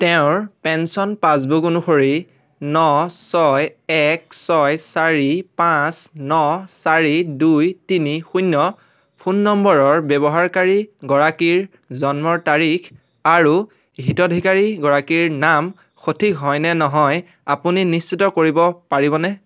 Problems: constant background noise